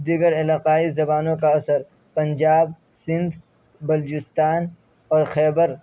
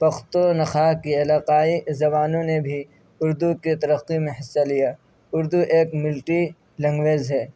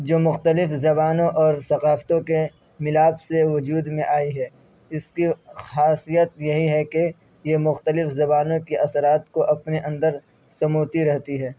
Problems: none marked